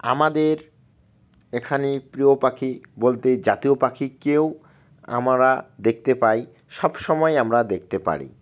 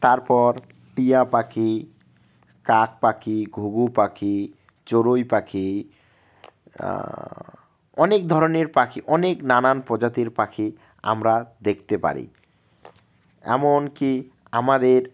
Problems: none marked